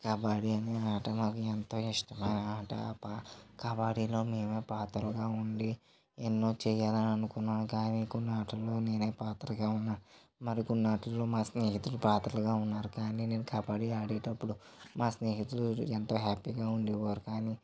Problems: low volume